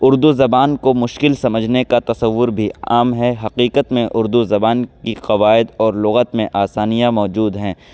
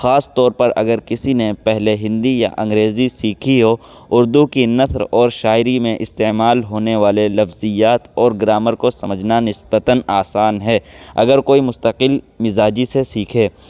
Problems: constant background noise